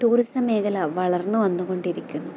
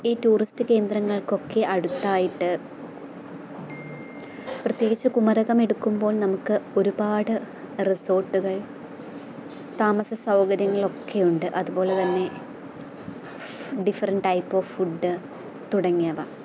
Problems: constant background noise